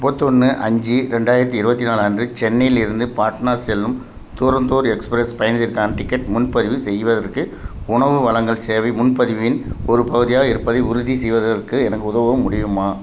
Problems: constant background noise